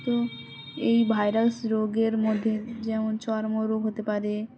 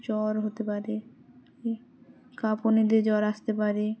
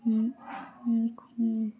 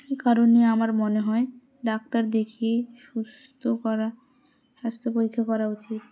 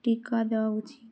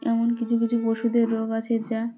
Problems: constant background noise, background conversations at intervals